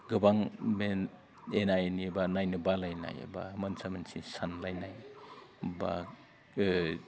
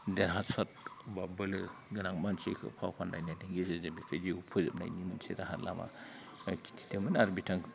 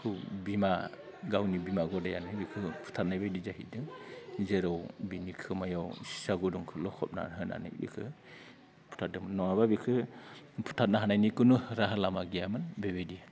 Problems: none marked